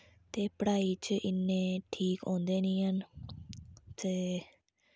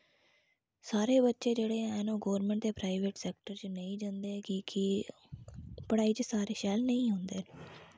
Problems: low volume